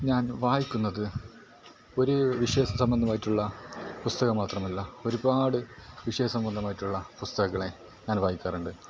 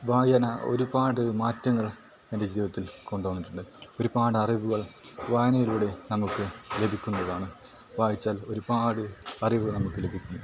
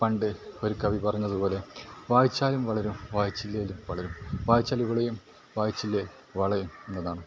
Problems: background sounds at intervals, low volume